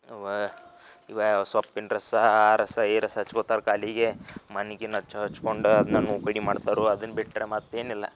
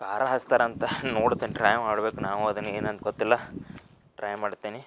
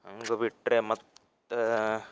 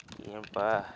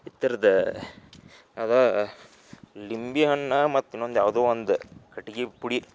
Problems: none marked